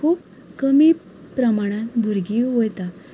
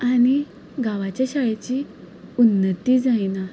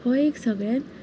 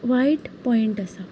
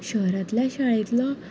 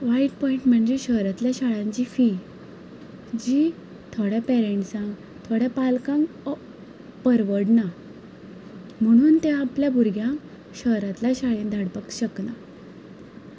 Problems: background sounds at intervals